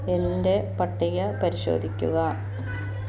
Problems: none marked